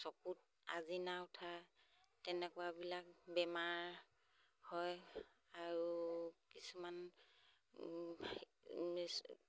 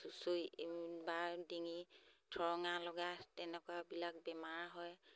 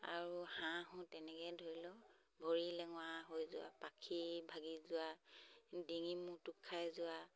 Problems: none marked